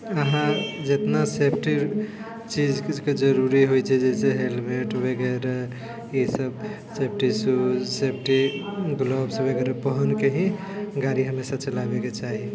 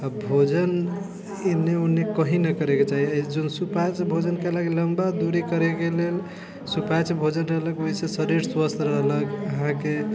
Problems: continuous background conversations